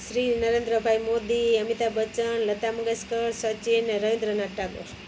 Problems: constant background noise